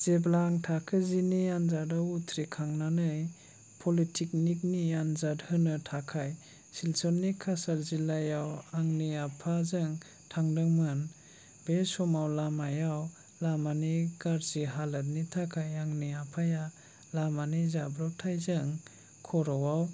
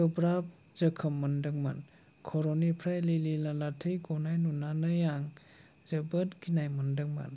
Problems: low volume